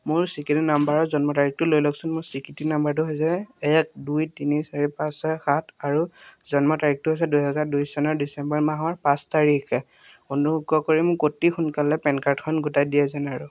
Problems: none marked